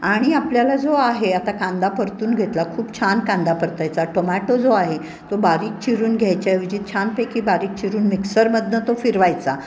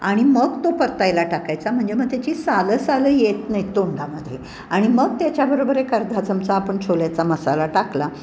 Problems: none marked